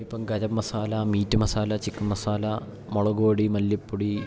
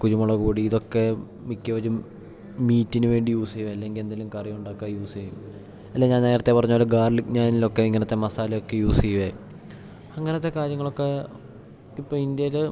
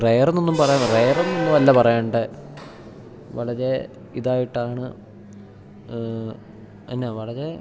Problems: background sounds at intervals